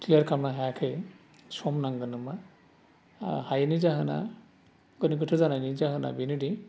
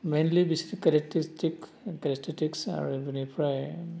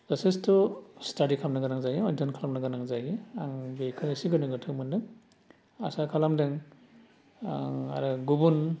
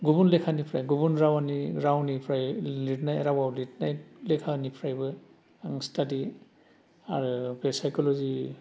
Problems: low volume